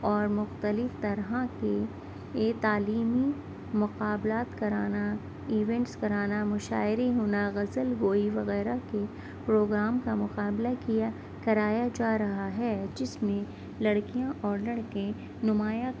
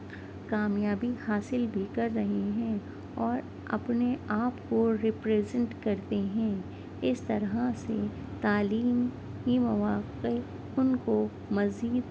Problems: constant background noise